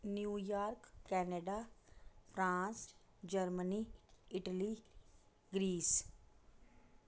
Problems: none marked